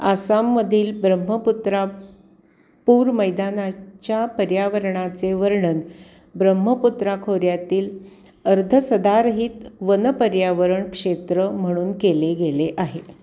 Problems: none marked